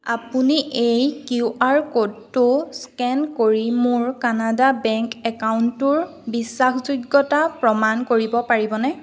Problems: none marked